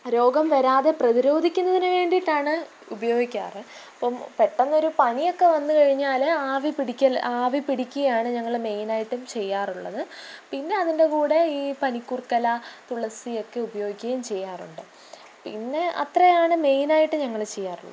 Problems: background sounds at intervals, low volume